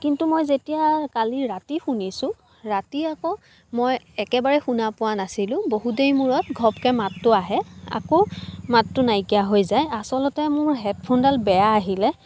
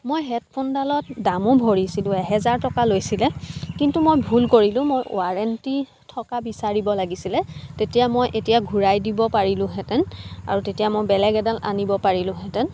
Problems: constant background noise, background conversations at intervals